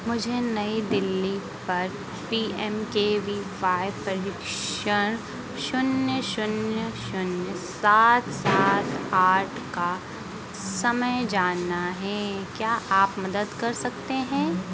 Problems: none marked